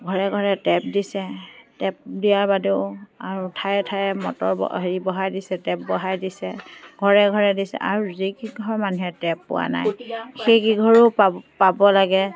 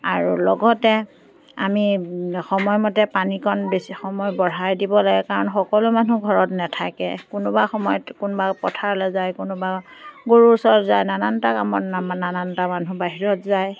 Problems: background sounds at intervals, background conversations at intervals